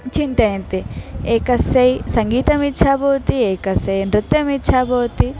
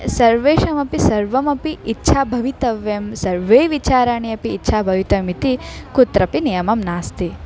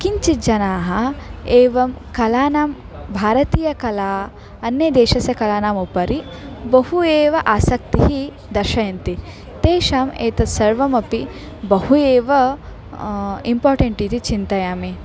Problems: background sounds at intervals, background conversations at intervals